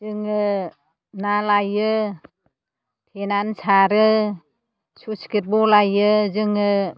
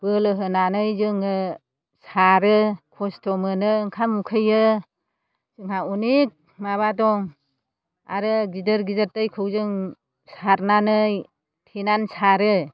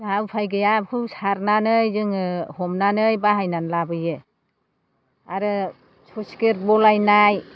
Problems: background sounds at intervals